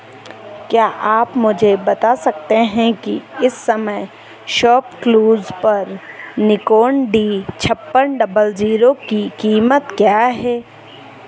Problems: none marked